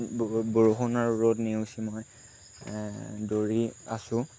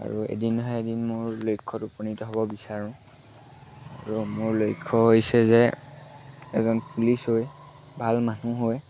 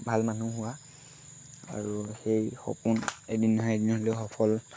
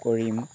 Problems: constant background noise